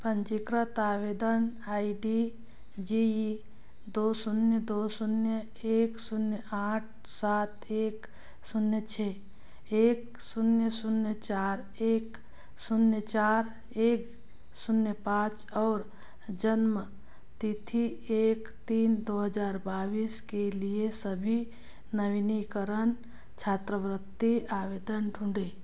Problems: background sounds at intervals